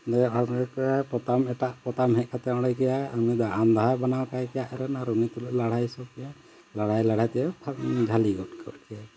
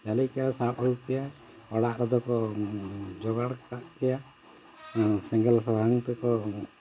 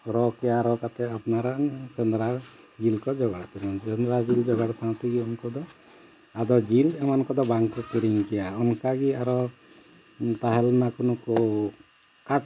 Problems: constant background noise